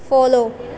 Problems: constant background noise